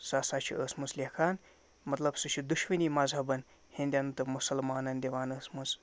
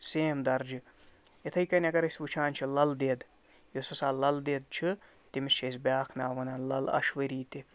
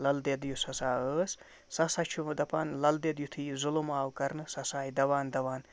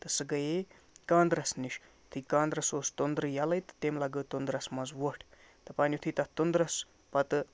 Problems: none marked